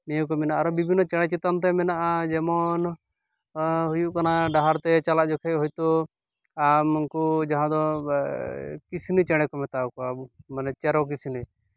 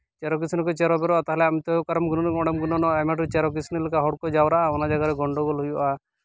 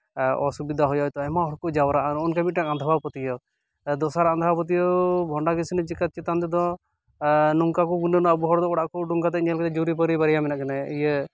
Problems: background sounds at intervals